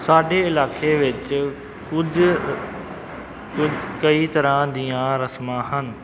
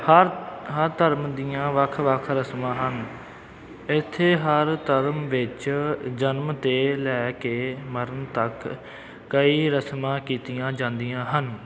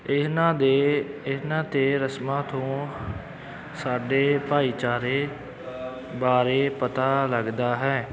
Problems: background sounds at intervals, continuous background conversations